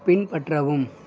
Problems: none marked